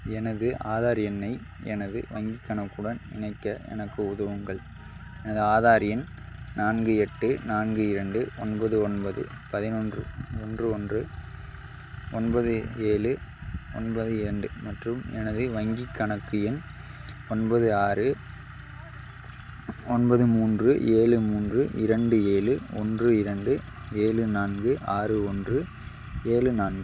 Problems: constant background noise